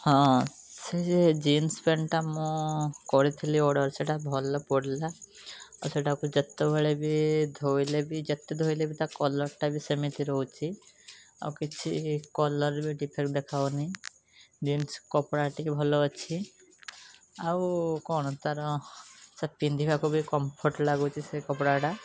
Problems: none marked